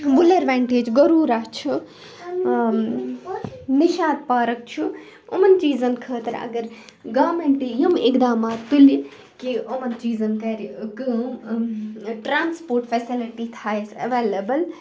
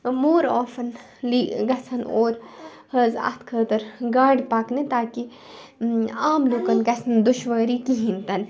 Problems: constant background noise